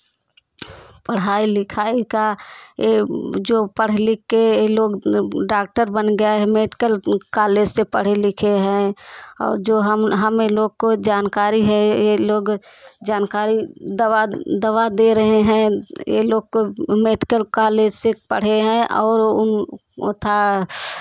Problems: constant background noise, continuous background conversations